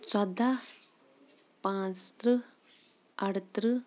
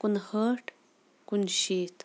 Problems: background sounds at intervals